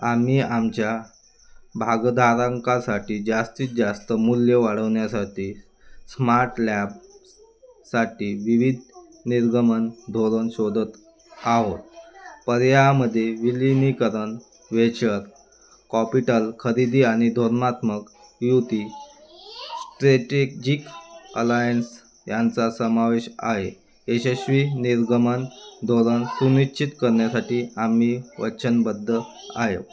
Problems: background sounds at intervals